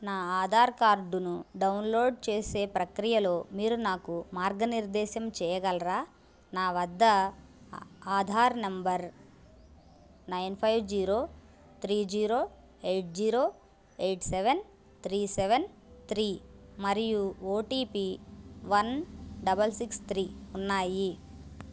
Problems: constant background noise